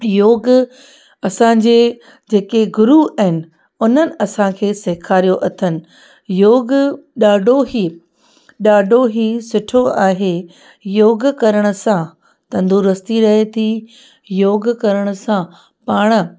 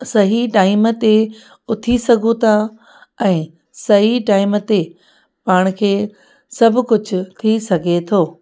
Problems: background sounds at intervals, echo